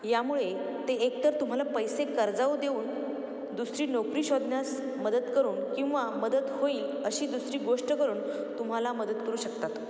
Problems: none marked